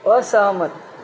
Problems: constant background noise